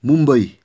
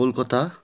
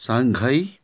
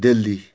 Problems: background sounds at intervals